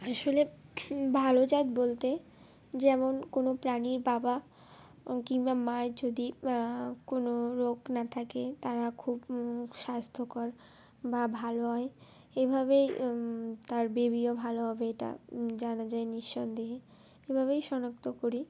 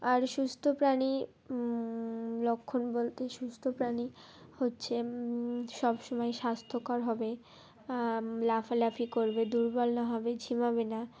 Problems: constant background noise, background conversations at intervals